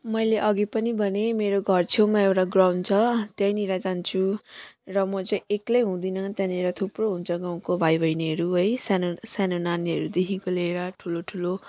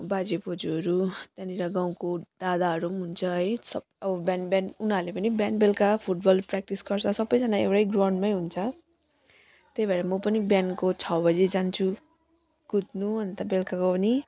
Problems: none marked